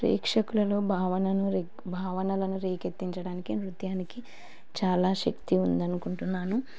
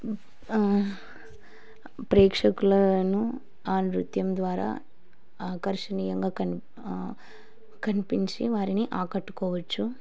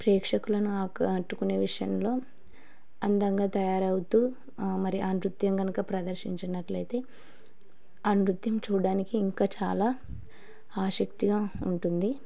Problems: none marked